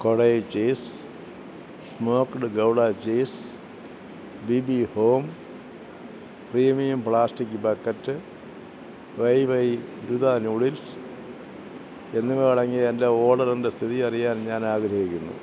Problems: constant background noise